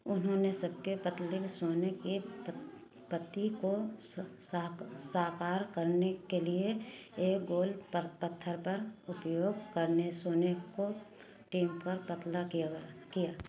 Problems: constant background noise